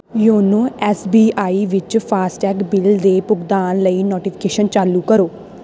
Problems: none marked